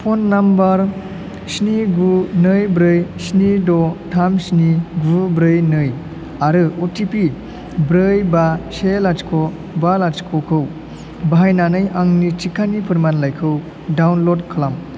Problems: none marked